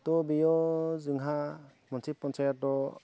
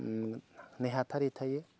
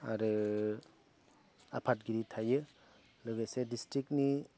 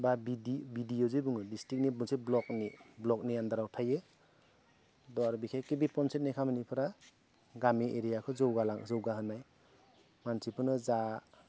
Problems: low volume